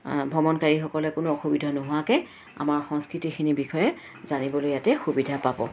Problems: constant background noise